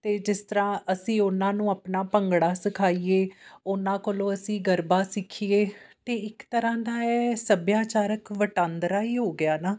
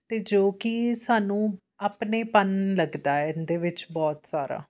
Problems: constant background noise